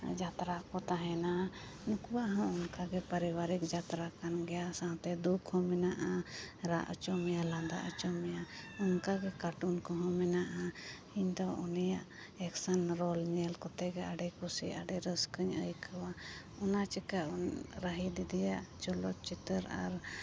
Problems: background sounds at intervals